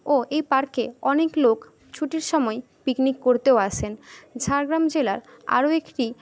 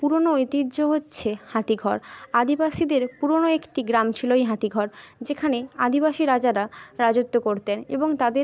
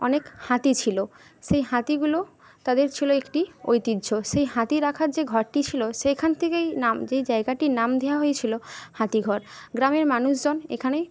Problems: none marked